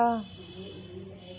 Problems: constant background noise, continuous background conversations